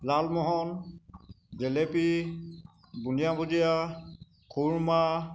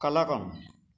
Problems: constant background noise